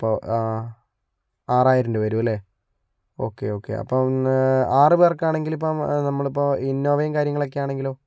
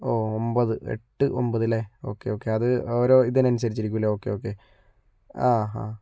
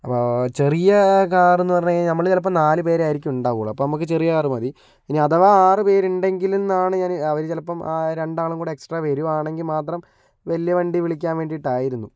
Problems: none marked